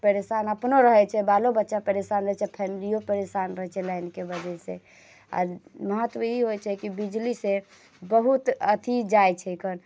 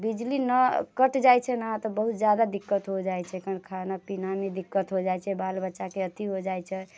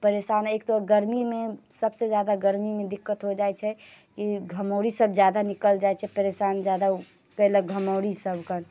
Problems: none marked